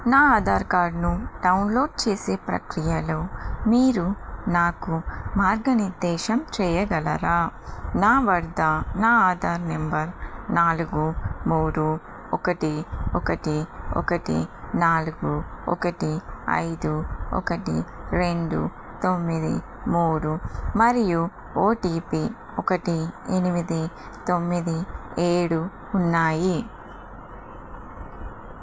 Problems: constant background noise